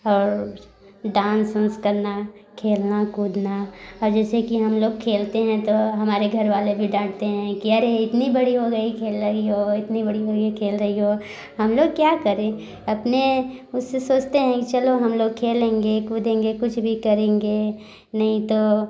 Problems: background sounds at intervals